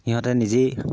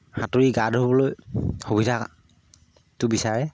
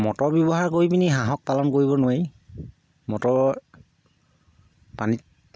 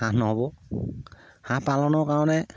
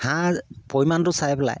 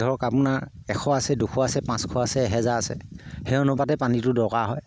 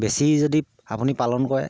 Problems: low volume